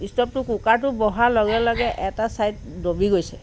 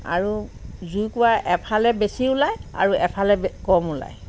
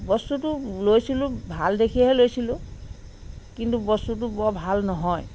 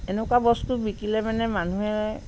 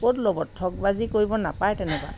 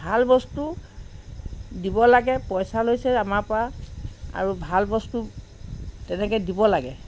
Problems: background sounds at intervals